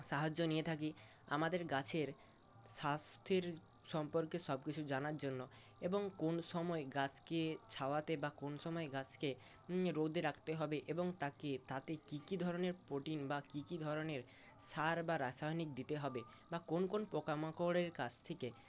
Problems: constant background noise